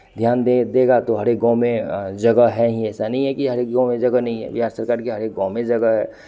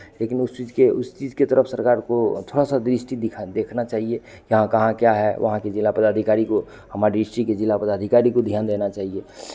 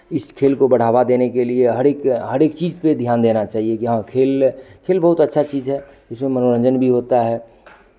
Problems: constant background noise